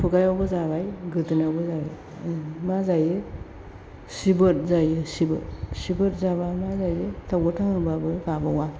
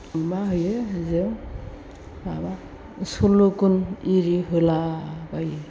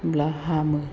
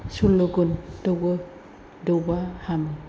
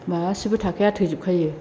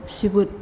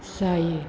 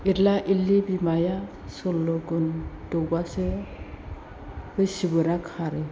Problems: constant background noise